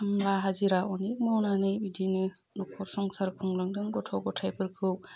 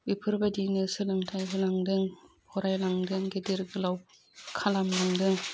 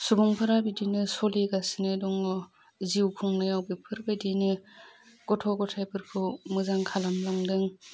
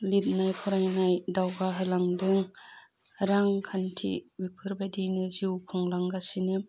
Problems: constant background noise